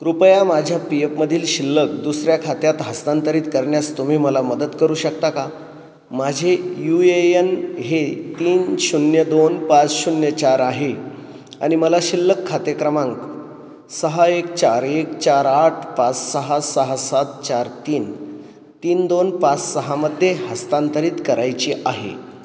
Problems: none marked